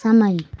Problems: none marked